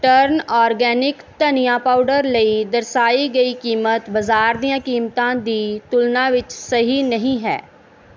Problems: background sounds at intervals